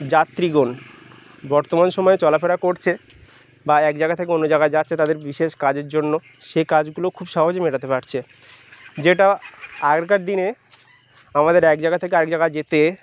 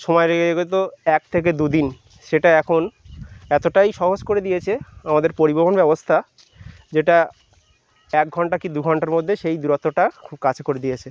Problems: none marked